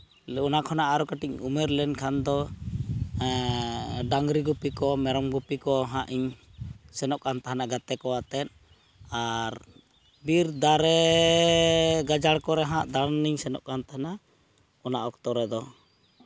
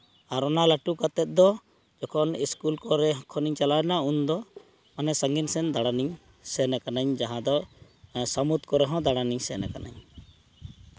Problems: background sounds at intervals